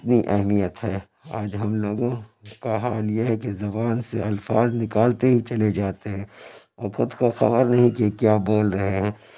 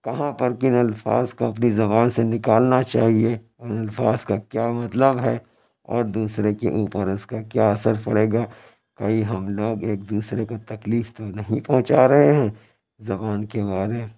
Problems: constant background noise